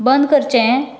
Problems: background sounds at intervals